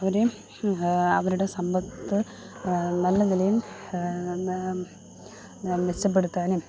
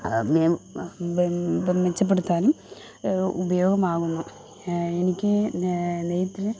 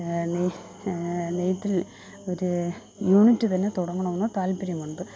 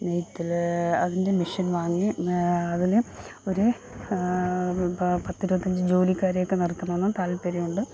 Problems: none marked